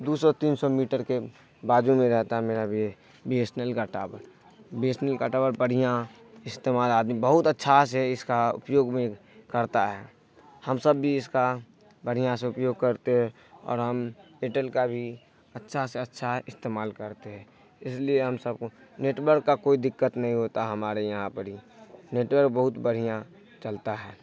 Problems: none marked